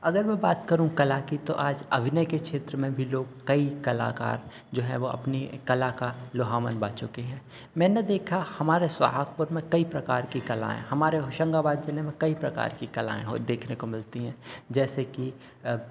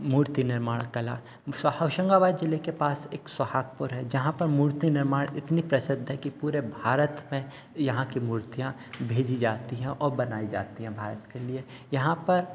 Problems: constant background noise, echo